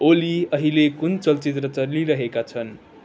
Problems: background sounds at intervals